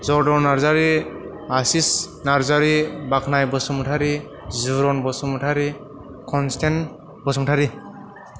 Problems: background sounds at intervals